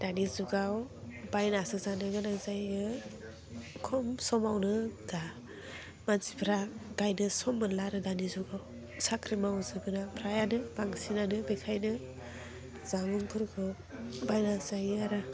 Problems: constant background noise